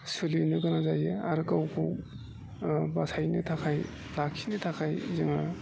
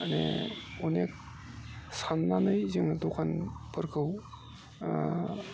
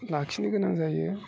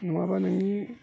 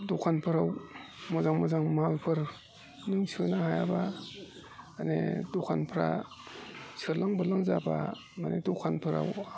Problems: constant background noise